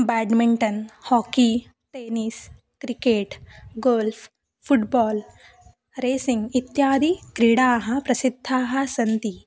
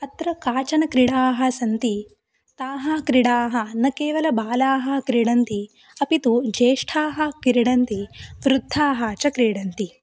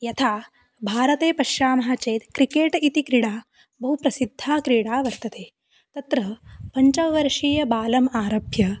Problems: none marked